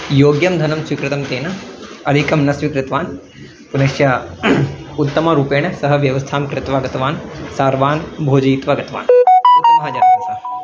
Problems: background sounds at intervals